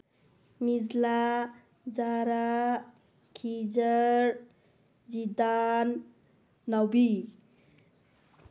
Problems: none marked